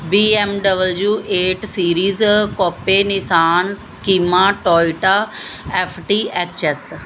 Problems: none marked